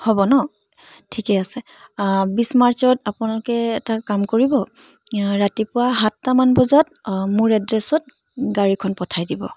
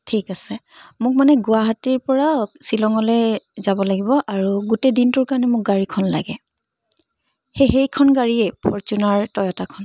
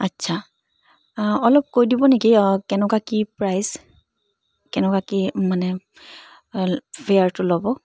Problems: background sounds at intervals